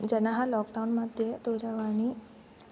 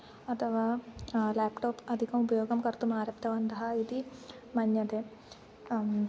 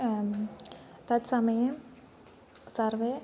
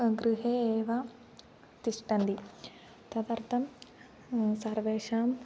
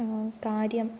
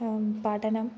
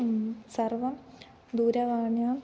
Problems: none marked